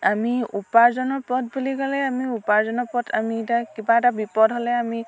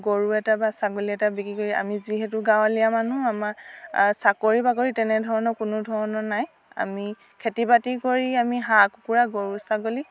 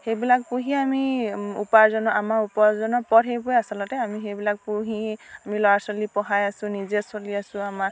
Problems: none marked